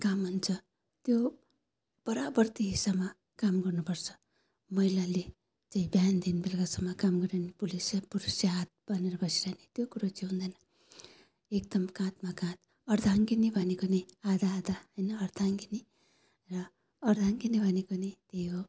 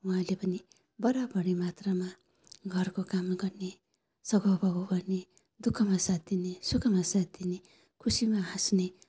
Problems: none marked